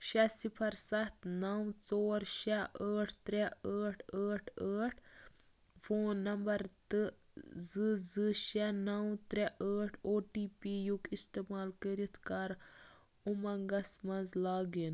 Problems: none marked